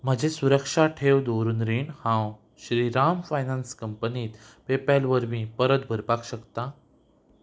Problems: background sounds at intervals